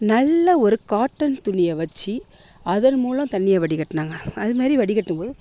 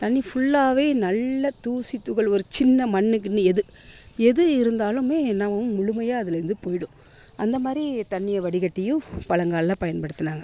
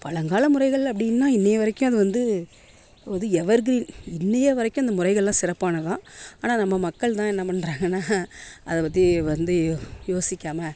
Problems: constant background noise